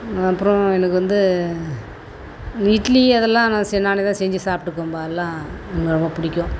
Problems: constant background noise